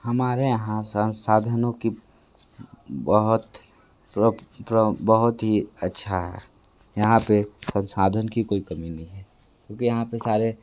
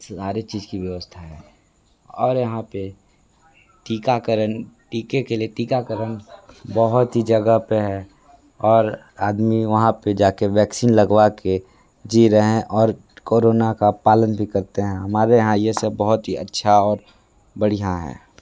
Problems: background conversations at intervals